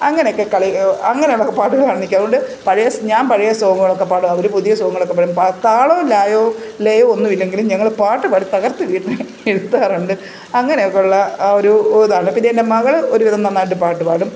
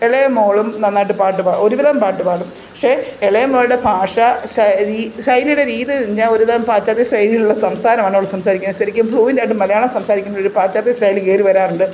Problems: constant background noise